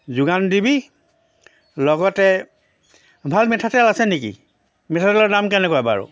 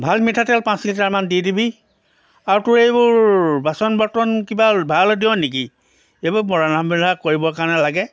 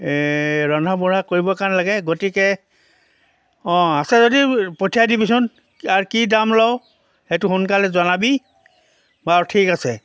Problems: none marked